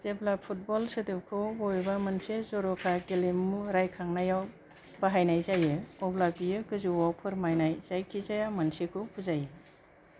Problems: low volume